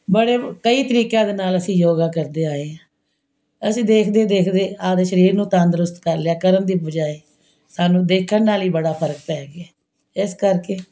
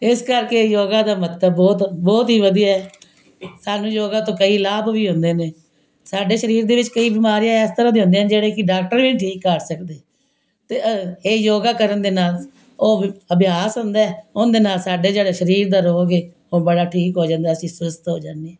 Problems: background sounds at intervals